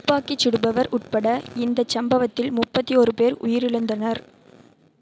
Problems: constant background noise